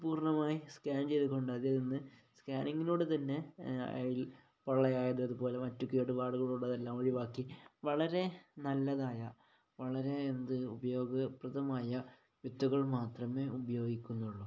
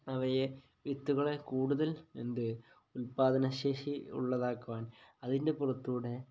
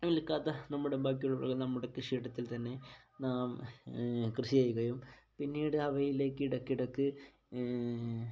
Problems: low volume